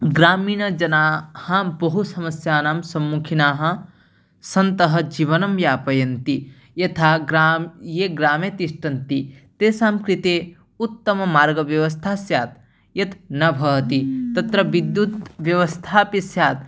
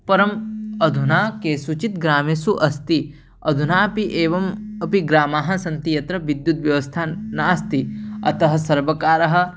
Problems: background sounds at intervals